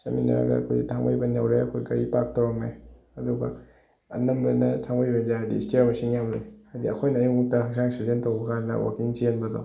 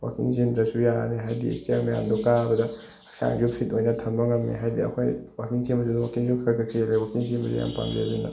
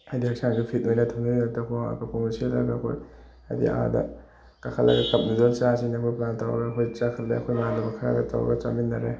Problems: background sounds at intervals